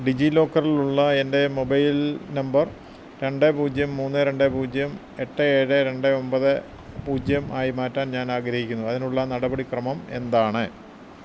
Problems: none marked